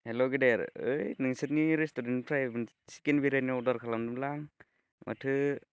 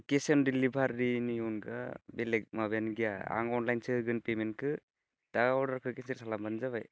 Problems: constant background noise